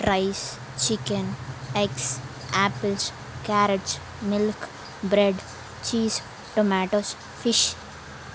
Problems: constant background noise